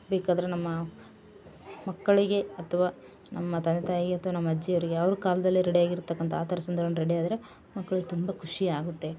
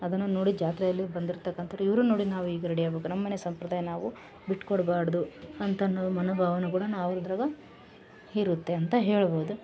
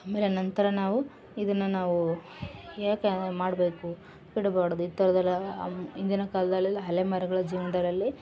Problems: background sounds at intervals